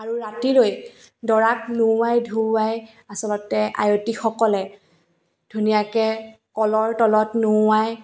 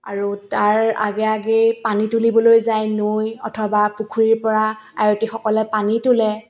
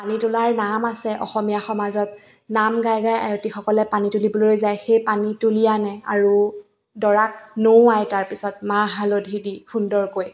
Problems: none marked